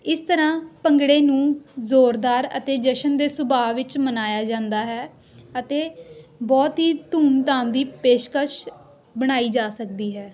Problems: background conversations at intervals